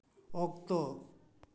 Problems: echo